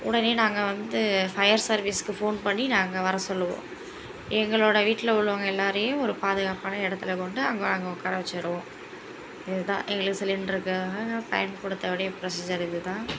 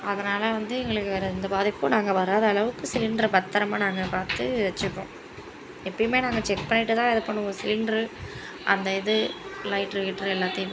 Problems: continuous background conversations